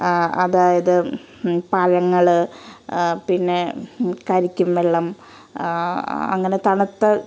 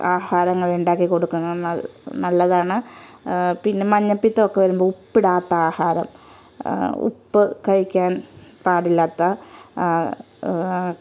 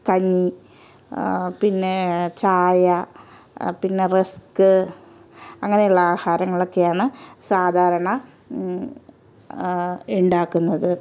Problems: background sounds at intervals